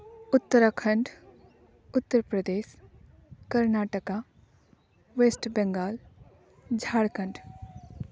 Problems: none marked